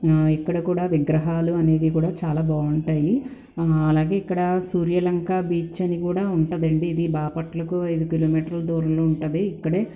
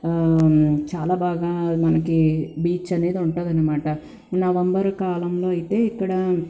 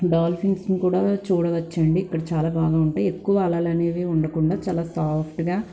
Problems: constant background noise